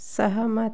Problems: background sounds at intervals